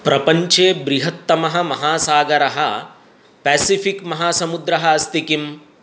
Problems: none marked